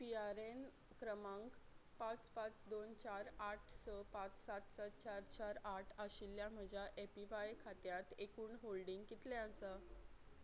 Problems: none marked